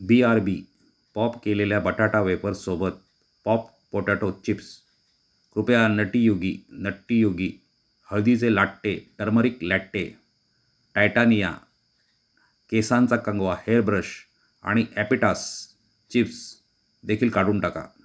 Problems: background sounds at intervals